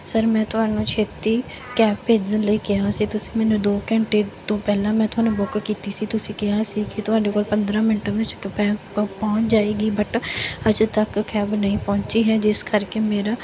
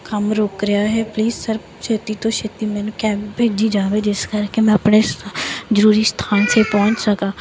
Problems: none marked